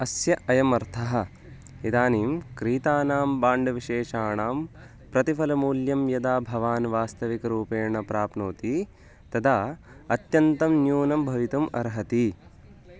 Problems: constant background noise, background conversations at intervals